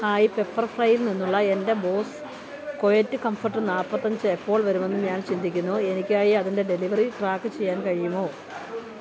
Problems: none marked